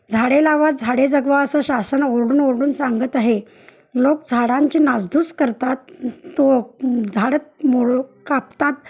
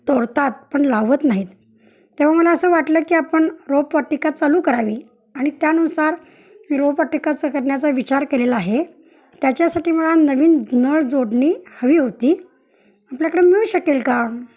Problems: background sounds at intervals, background conversations at intervals